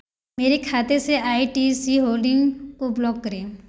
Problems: background sounds at intervals